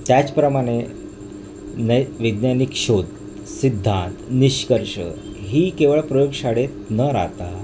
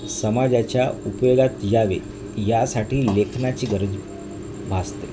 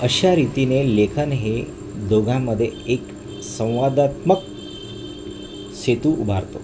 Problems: constant background noise